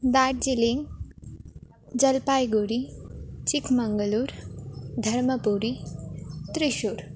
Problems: constant background noise